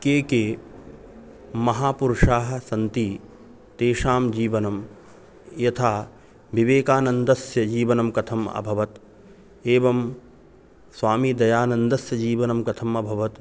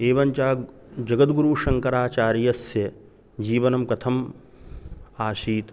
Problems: constant background noise